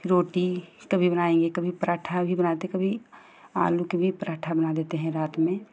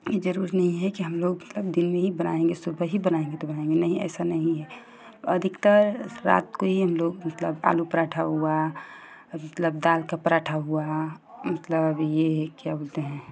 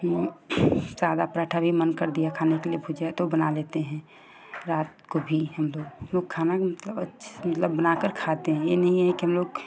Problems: constant background noise